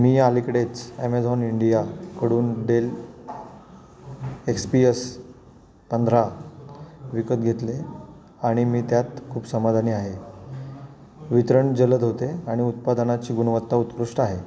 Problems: constant background noise, continuous background conversations